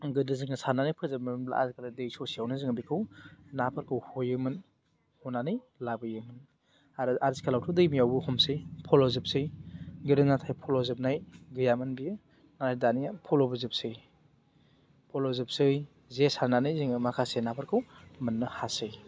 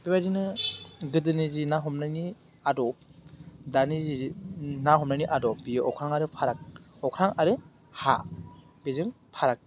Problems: none marked